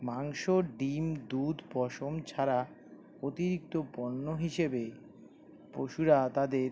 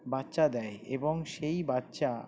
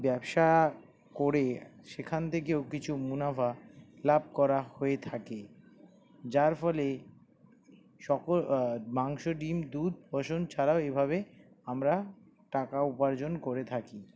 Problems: constant background noise